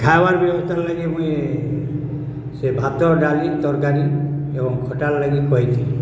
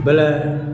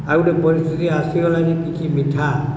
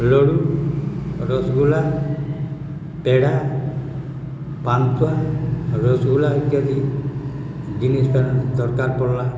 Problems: constant background noise